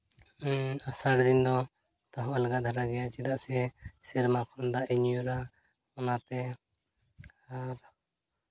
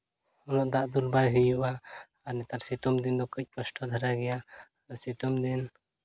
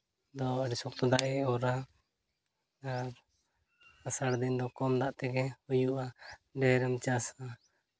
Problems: background sounds at intervals